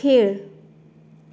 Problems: none marked